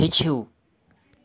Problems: none marked